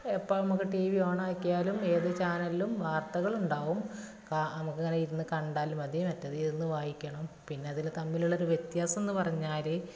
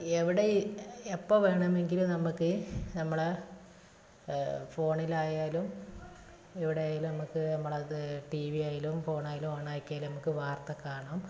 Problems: constant background noise, low volume